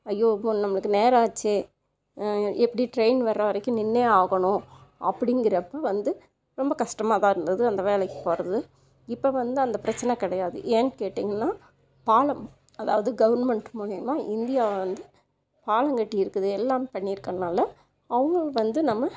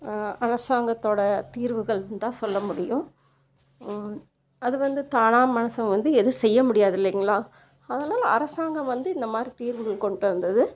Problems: none marked